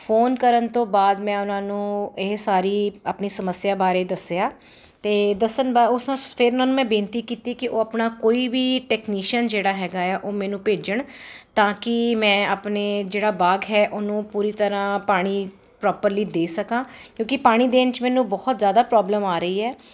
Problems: none marked